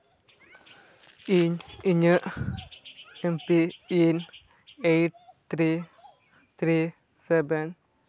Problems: background sounds at intervals, background conversations at intervals